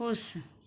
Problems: none marked